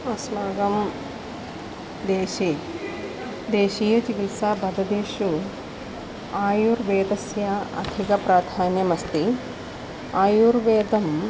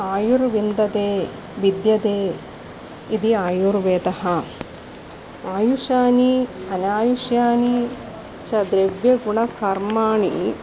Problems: constant background noise